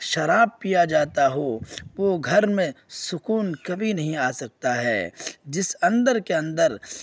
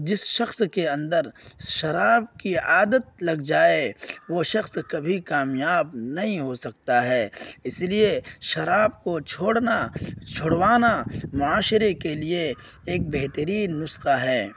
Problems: none marked